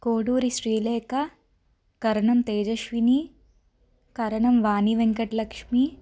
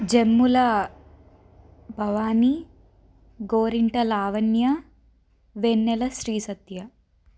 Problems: none marked